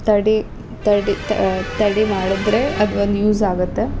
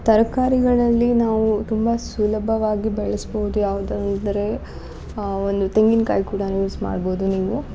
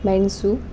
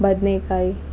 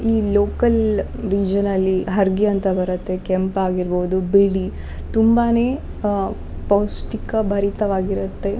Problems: background sounds at intervals